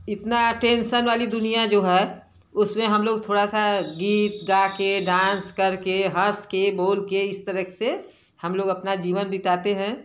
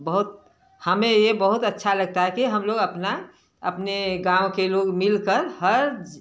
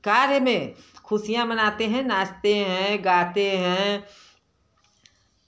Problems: background sounds at intervals, background conversations at intervals